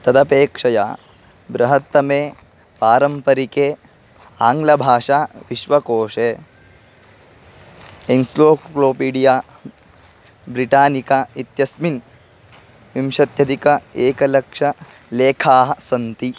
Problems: background sounds at intervals